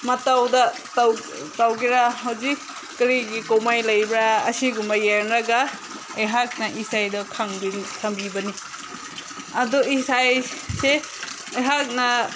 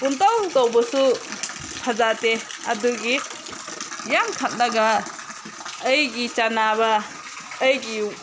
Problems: background sounds at intervals